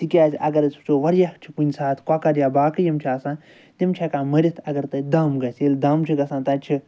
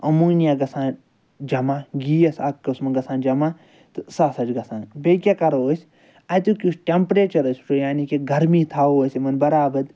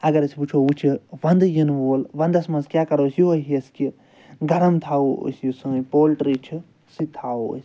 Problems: none marked